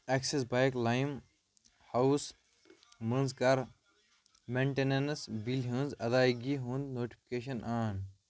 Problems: none marked